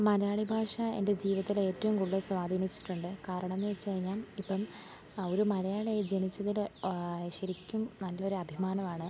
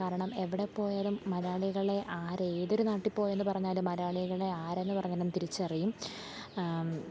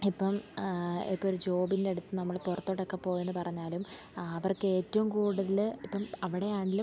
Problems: background sounds at intervals, low volume